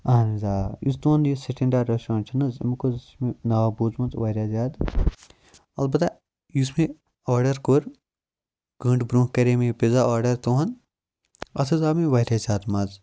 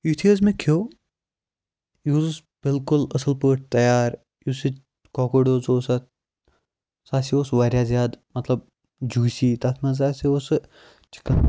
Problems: background sounds at intervals